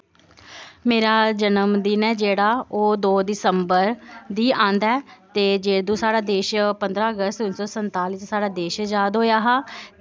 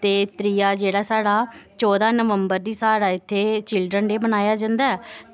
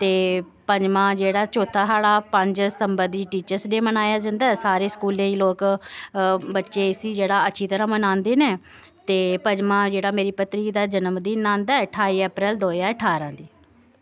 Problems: constant background noise